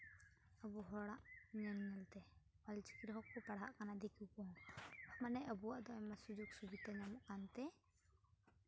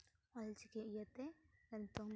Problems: constant background noise